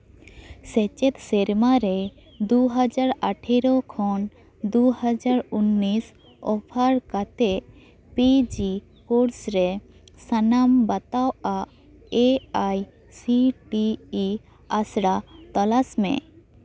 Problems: continuous background conversations